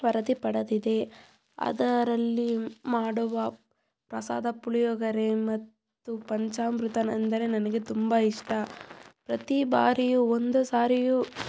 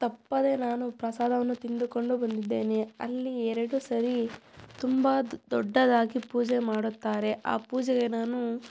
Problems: background sounds at intervals